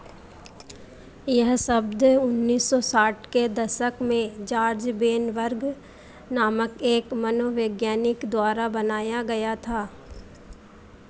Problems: constant background noise